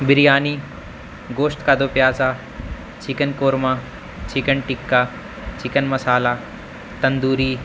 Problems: constant background noise